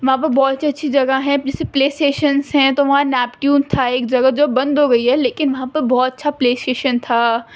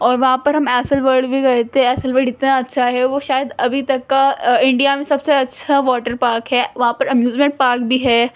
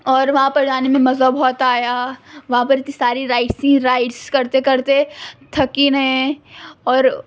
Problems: constant background noise